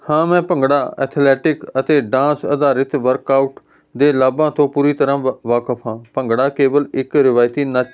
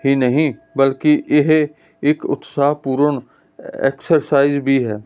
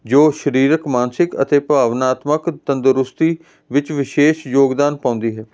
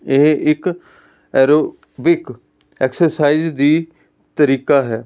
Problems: constant background noise